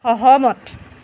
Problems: none marked